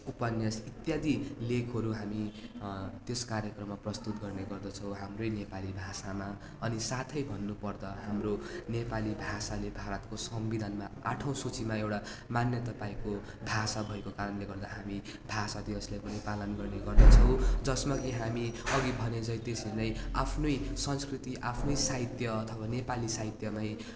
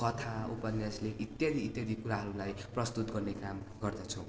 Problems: none marked